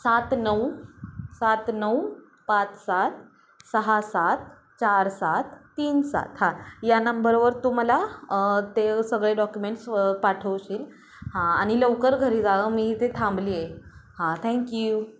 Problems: constant background noise